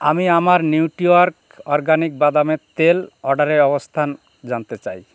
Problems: none marked